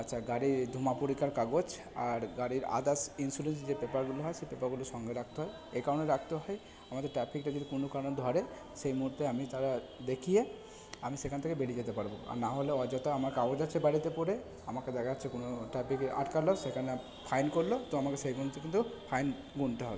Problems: background sounds at intervals, background conversations at intervals